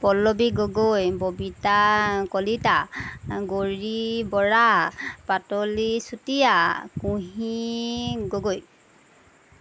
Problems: background sounds at intervals